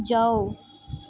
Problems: none marked